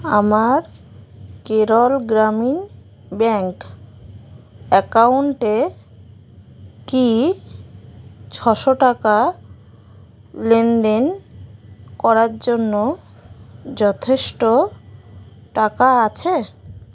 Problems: none marked